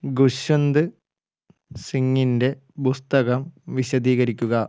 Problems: low volume